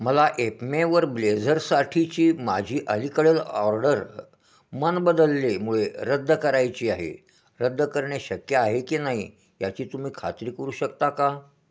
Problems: constant background noise, echo